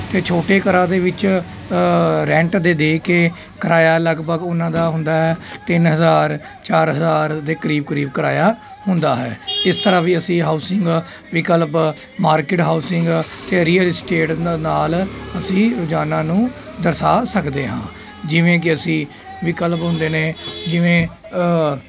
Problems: none marked